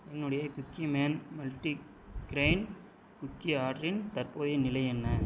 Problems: constant background noise